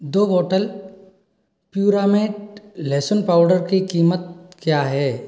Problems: none marked